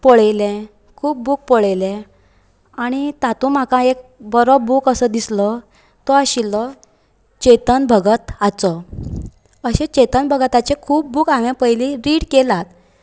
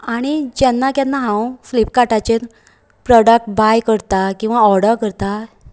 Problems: none marked